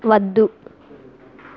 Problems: none marked